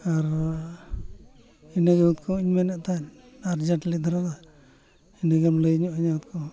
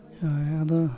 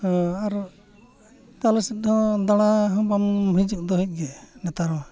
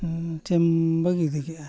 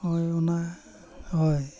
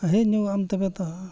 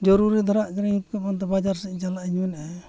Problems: constant background noise, continuous background conversations